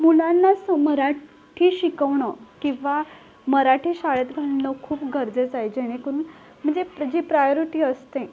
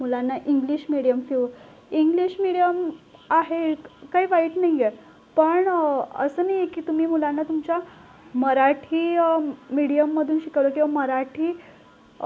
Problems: constant background noise